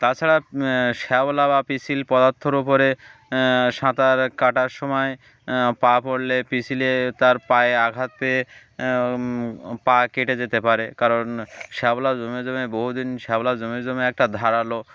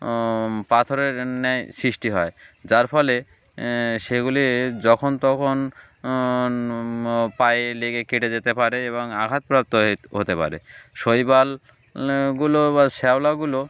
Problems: none marked